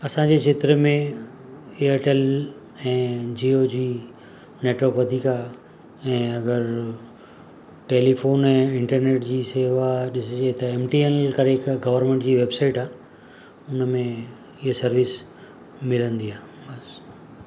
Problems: constant background noise